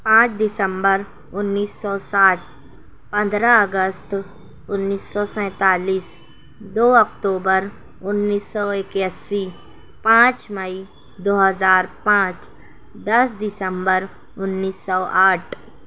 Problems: constant background noise